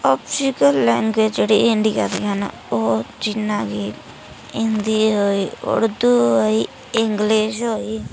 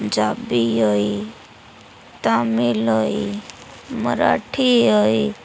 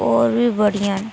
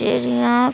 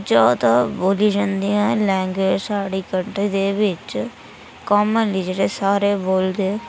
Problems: none marked